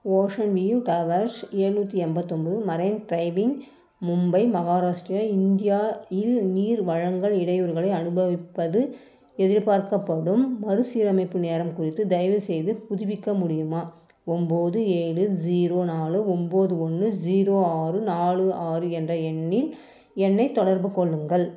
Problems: background sounds at intervals